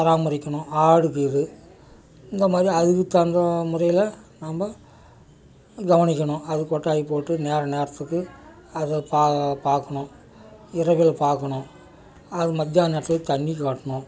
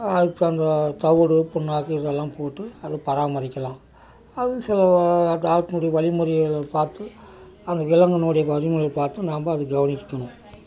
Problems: background conversations at intervals